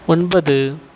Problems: none marked